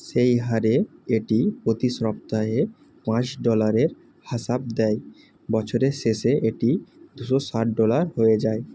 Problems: none marked